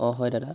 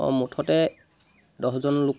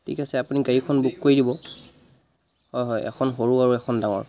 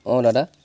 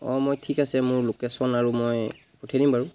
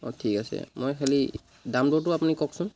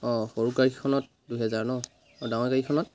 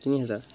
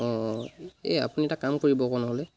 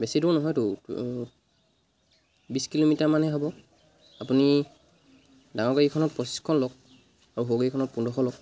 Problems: constant background noise